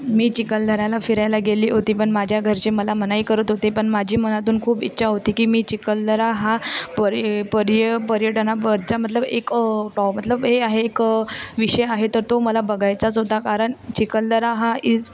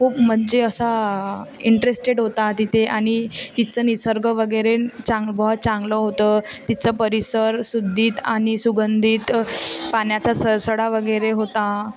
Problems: constant background noise, continuous background conversations